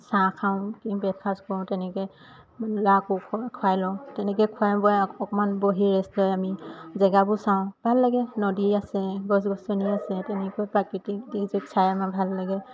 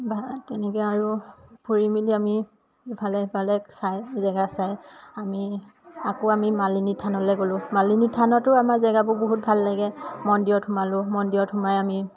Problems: constant background noise